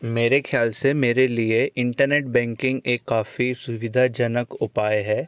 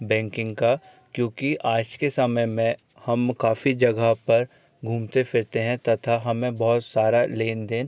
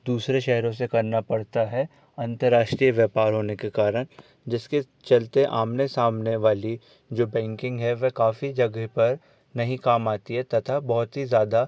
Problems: none marked